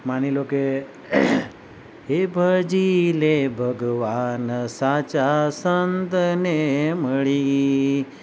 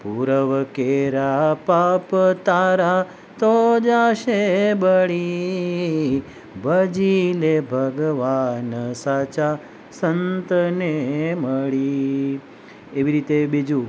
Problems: none marked